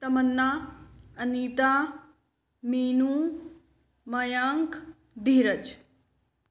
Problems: echo